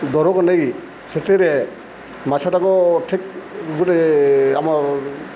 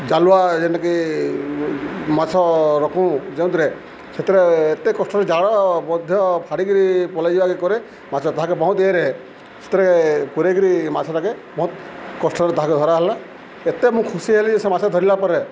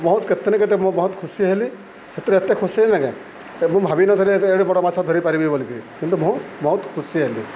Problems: constant background noise